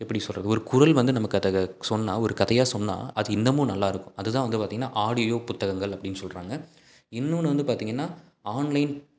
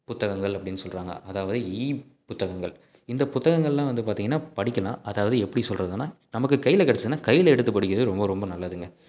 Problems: none marked